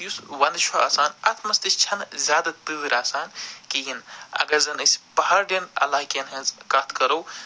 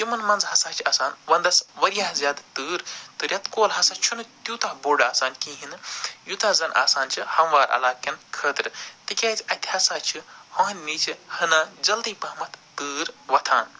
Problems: none marked